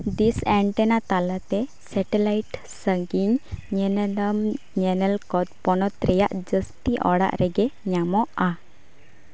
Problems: background sounds at intervals